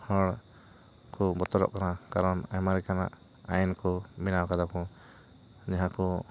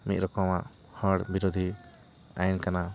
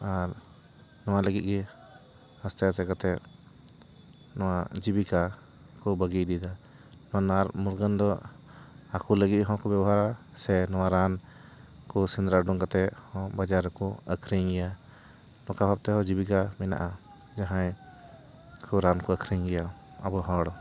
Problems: background sounds at intervals, continuous background conversations